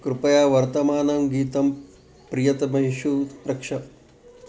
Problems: none marked